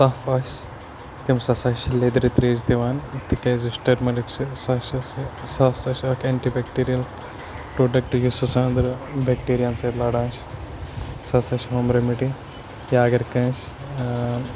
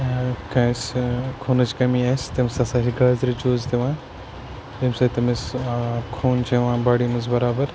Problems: constant background noise